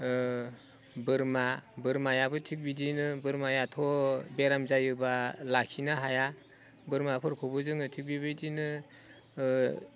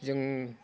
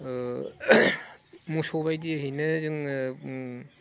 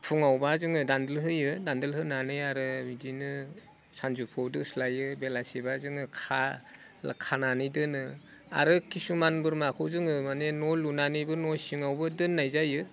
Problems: none marked